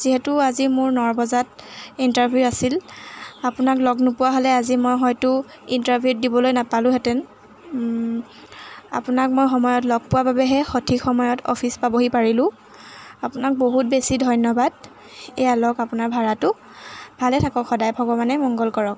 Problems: none marked